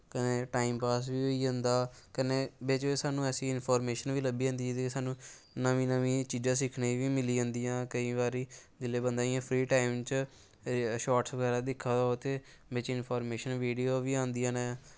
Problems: background sounds at intervals